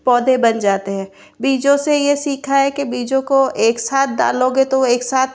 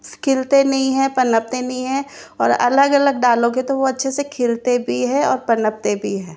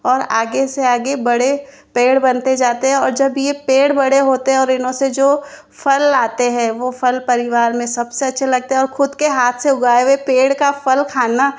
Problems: constant background noise